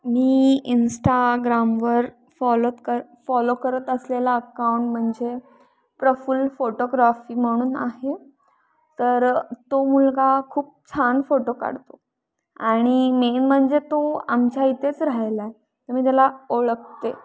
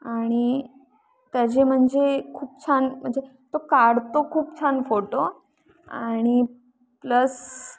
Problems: constant background noise